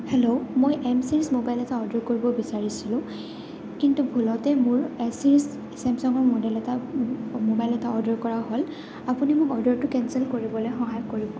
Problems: constant background noise